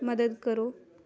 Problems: none marked